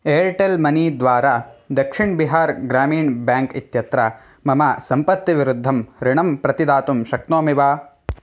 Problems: none marked